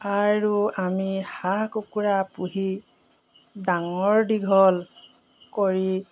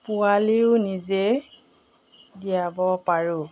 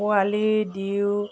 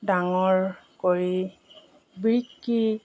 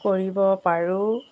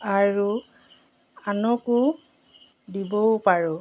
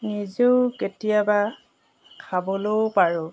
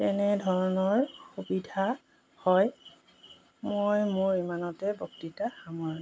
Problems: background sounds at intervals